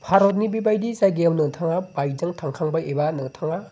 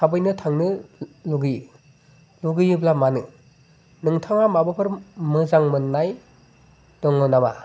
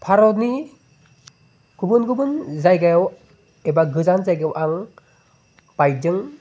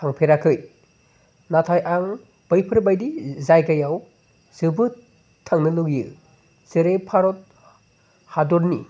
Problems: constant background noise